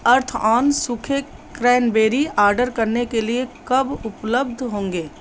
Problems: none marked